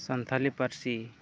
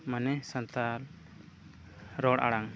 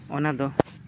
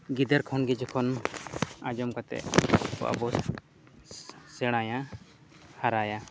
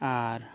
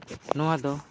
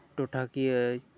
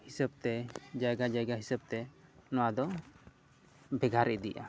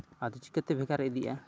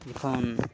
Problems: background sounds at intervals, low volume